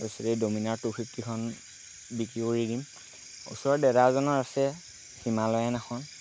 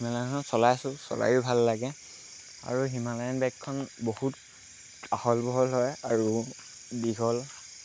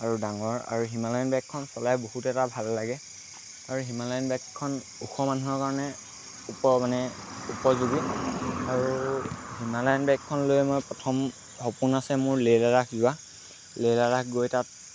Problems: constant background noise